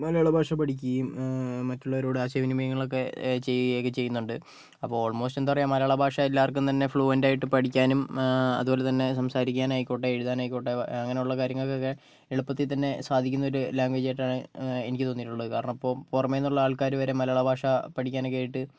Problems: none marked